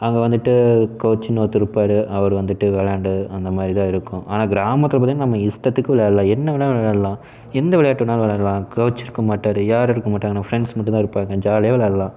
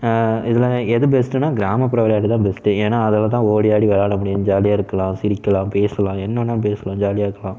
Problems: none marked